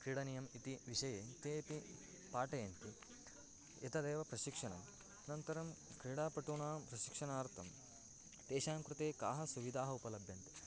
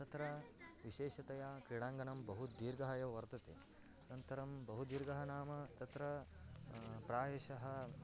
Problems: none marked